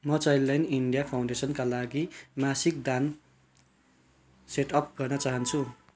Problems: background sounds at intervals